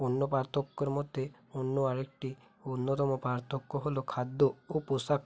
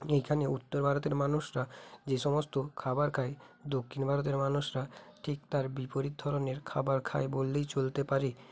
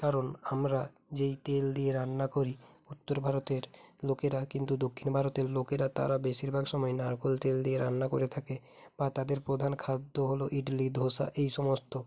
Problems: none marked